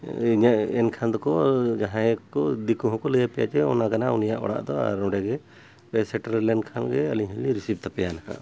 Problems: background sounds at intervals